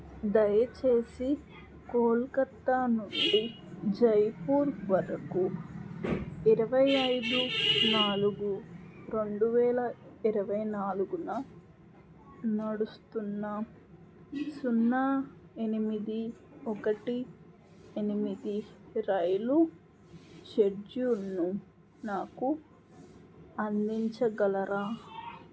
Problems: constant background noise